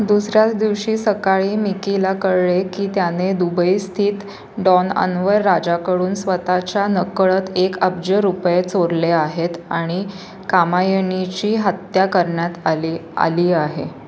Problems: none marked